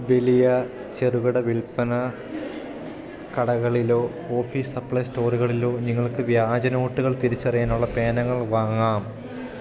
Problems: continuous background conversations